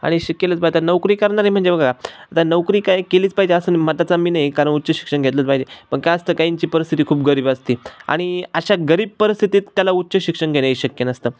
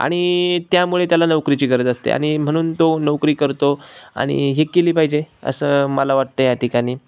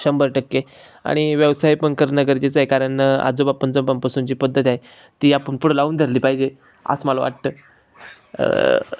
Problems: none marked